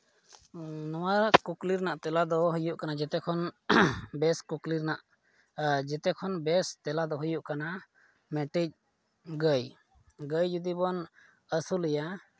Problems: low volume